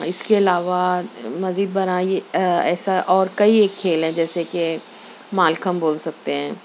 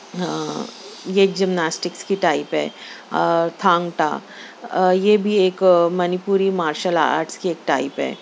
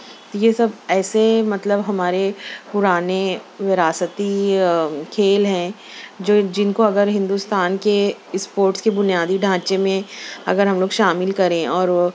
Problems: none marked